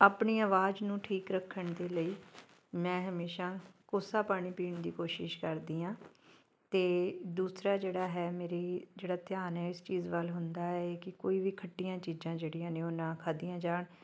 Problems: background sounds at intervals